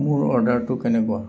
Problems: none marked